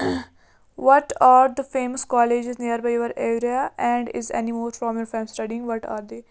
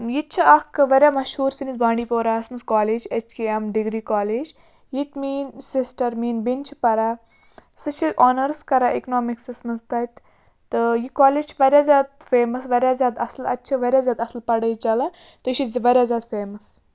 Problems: constant background noise